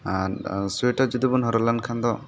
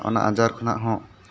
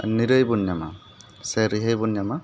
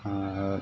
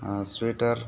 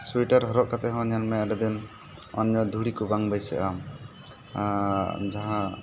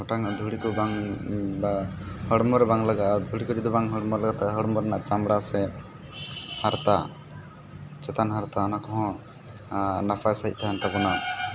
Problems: constant background noise, background conversations at intervals